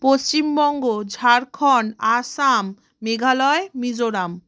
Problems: constant background noise